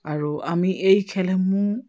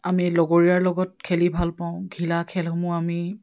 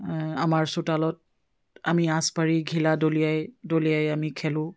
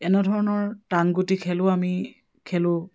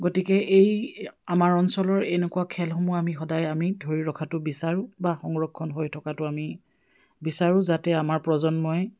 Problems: background sounds at intervals